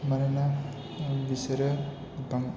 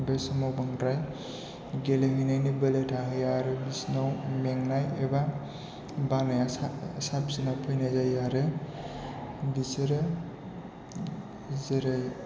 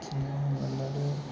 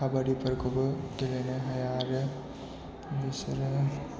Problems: low volume